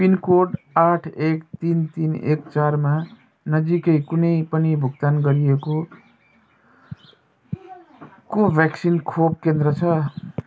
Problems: none marked